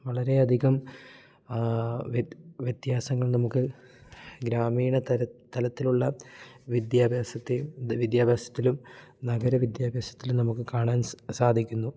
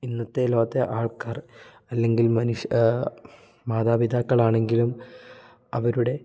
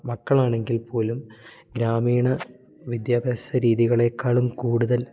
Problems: none marked